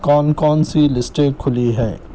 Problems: background sounds at intervals